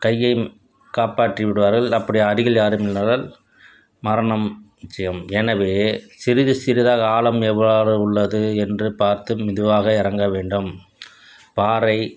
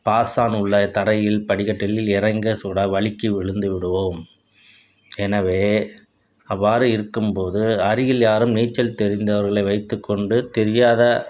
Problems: constant background noise